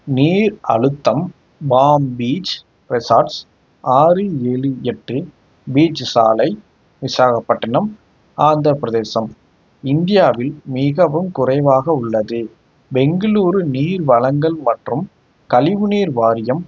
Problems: background sounds at intervals